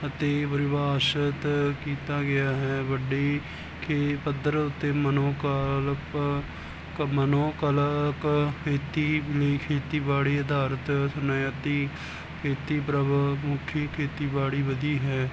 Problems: background sounds at intervals